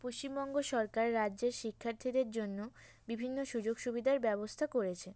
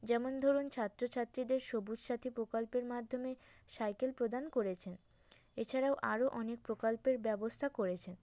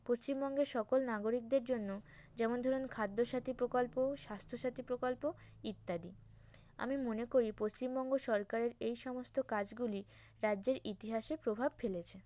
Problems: background sounds at intervals